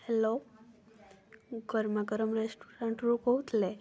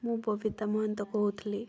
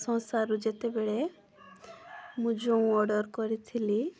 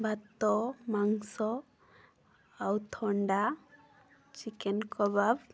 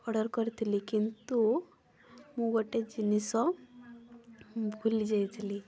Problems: constant background noise, continuous background conversations